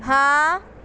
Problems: none marked